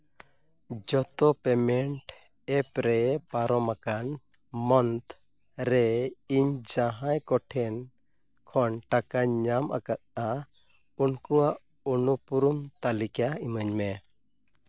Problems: none marked